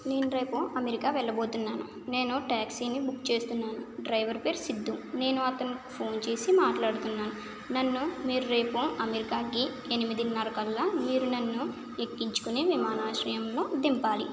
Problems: background sounds at intervals